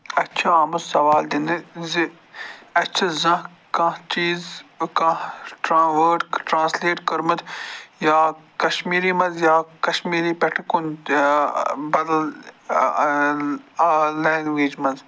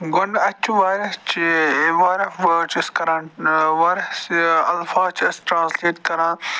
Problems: constant background noise